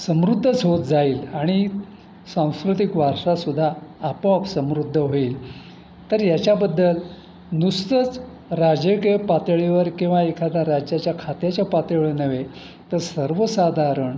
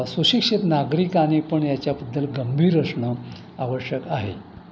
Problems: constant background noise